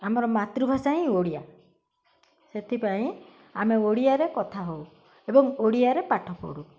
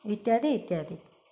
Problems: none marked